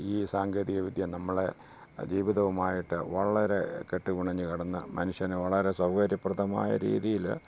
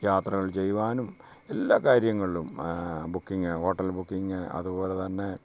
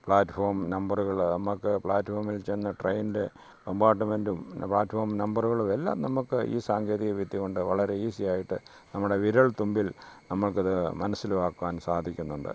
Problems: low volume